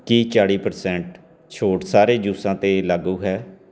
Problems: background sounds at intervals